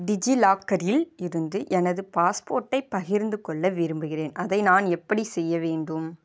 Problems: none marked